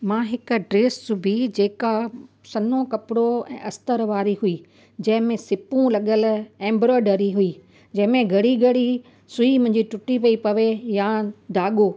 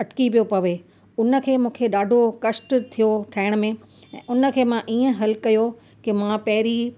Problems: constant background noise